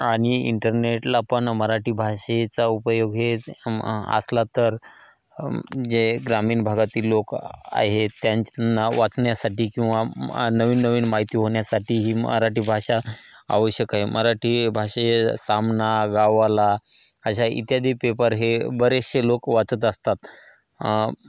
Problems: constant background noise, echo